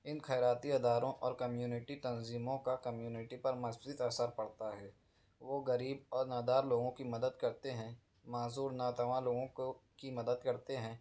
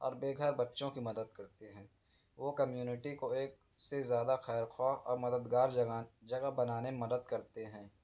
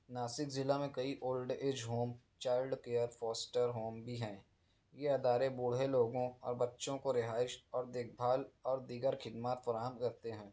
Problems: none marked